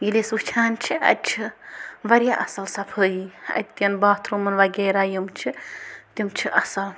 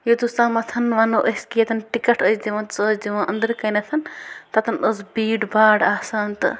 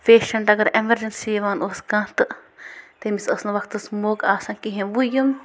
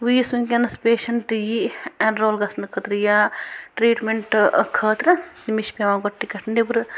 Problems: constant background noise